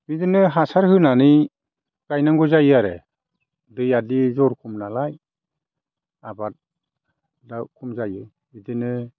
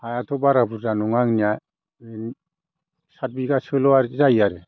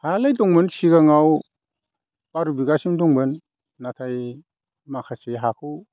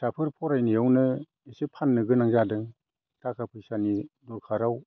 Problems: none marked